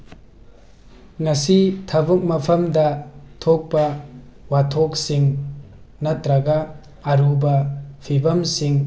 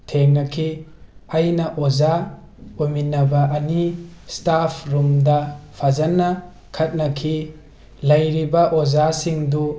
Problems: background sounds at intervals